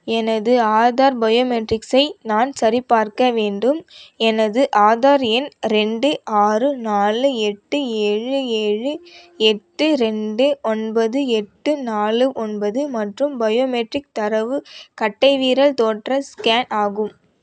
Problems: none marked